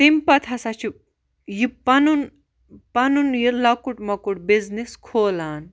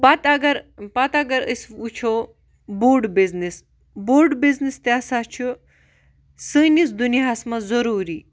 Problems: none marked